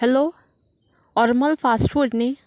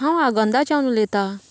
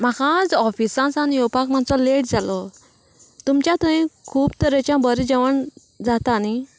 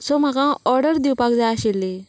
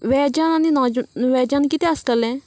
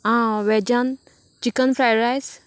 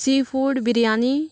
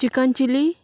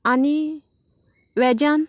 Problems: constant background noise